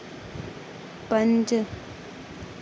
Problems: constant background noise